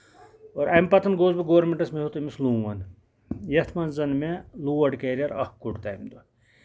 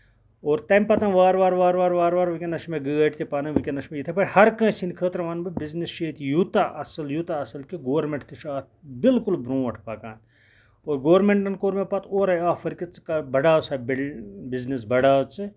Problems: background sounds at intervals, background conversations at intervals